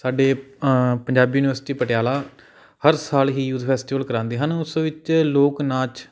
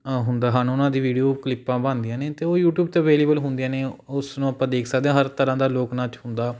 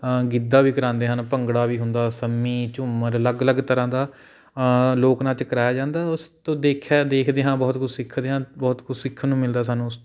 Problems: none marked